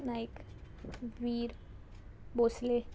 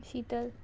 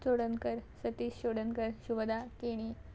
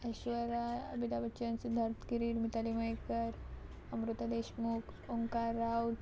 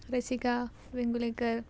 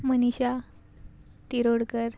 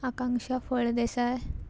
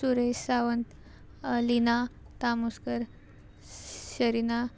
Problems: background sounds at intervals